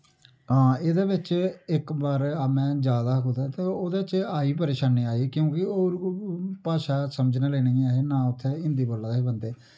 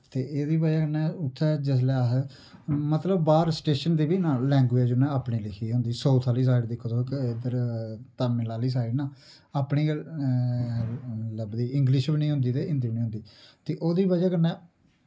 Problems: low volume